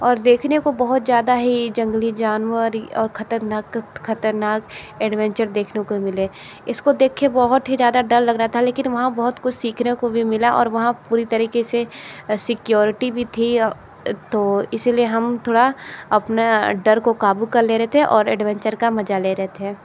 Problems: constant background noise